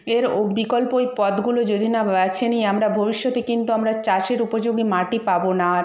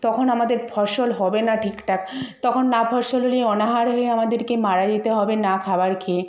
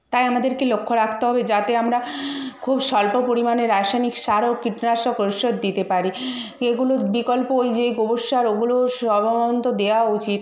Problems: none marked